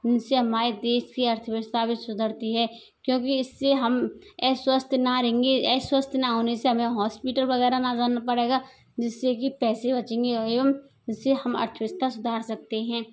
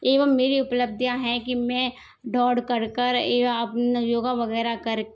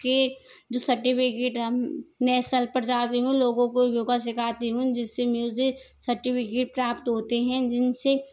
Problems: constant background noise